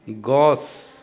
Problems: constant background noise